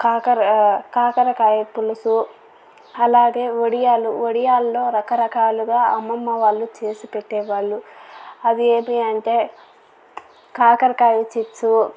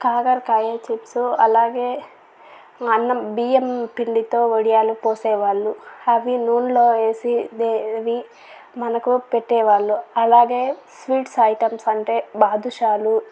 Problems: none marked